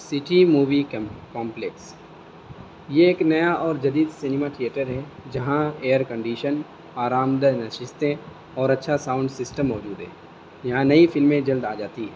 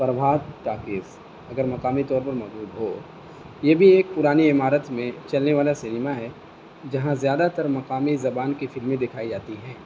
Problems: constant background noise